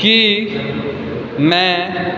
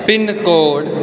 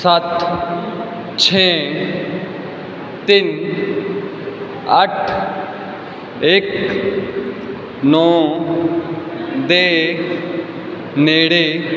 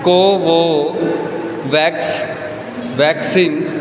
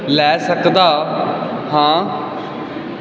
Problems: constant background noise